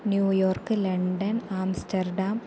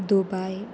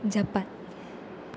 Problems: constant background noise